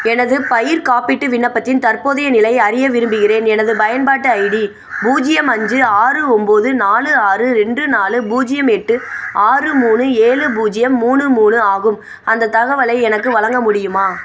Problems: constant background noise